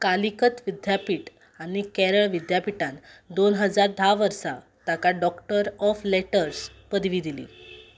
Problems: background sounds at intervals